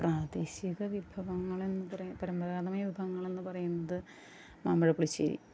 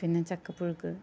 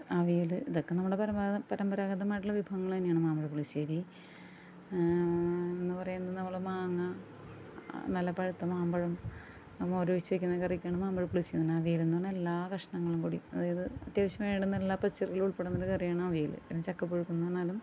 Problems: low volume